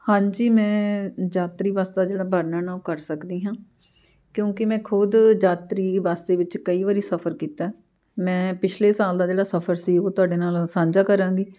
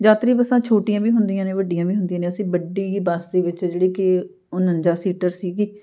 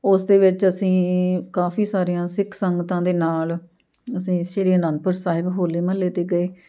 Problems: none marked